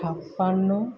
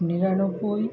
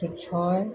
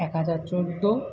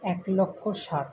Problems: none marked